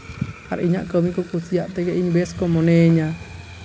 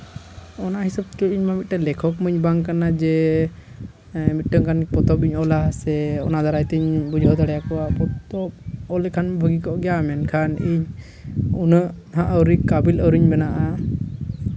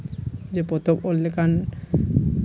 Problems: constant background noise, background conversations at intervals